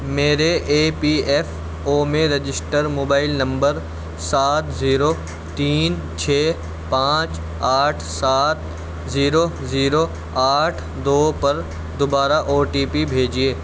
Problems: constant background noise